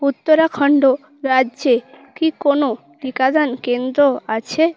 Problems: constant background noise